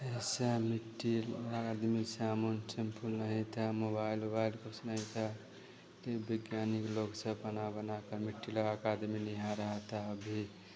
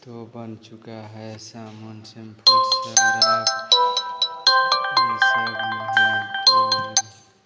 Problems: none marked